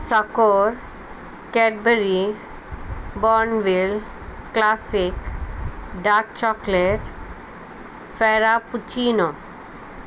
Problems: constant background noise